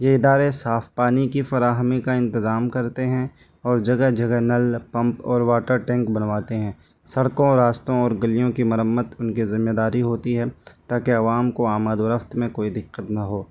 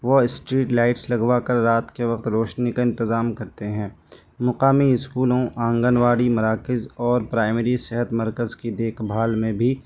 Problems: constant background noise